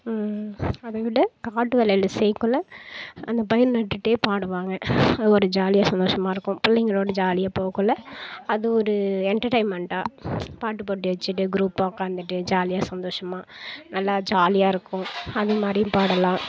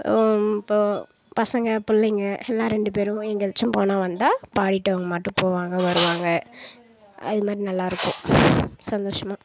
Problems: background sounds at intervals